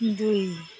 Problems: constant background noise